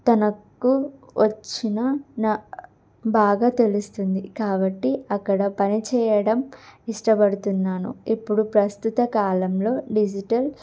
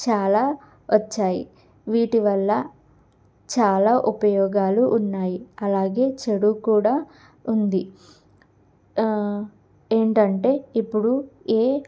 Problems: none marked